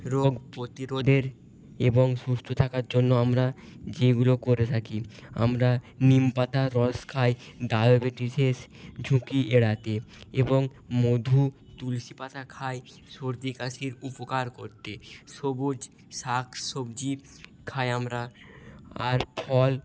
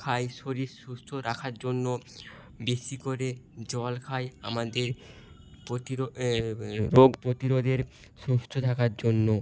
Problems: background sounds at intervals